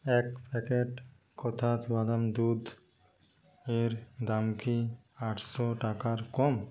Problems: constant background noise